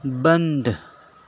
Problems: constant background noise